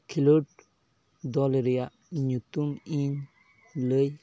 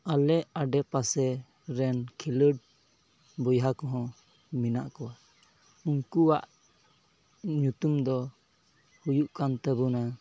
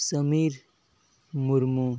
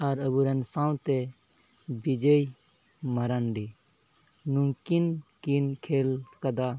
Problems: background conversations at intervals